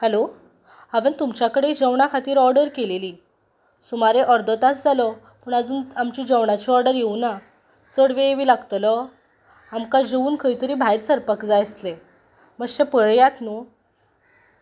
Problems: background sounds at intervals